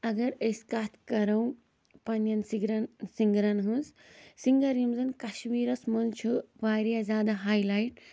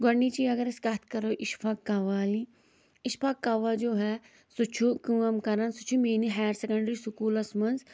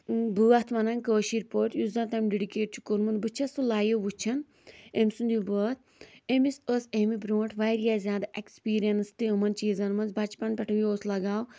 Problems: none marked